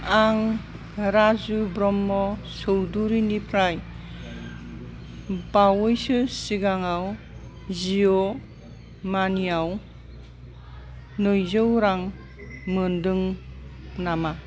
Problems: constant background noise